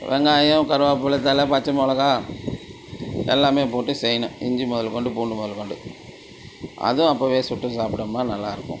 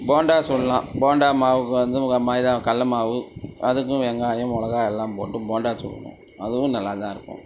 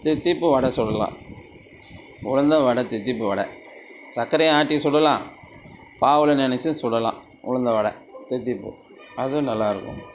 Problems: constant background noise